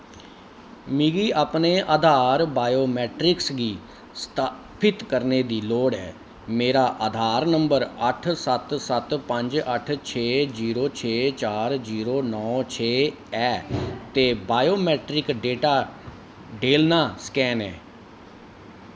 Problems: background sounds at intervals